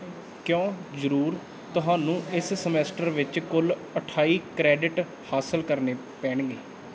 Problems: none marked